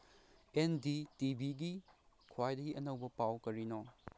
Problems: none marked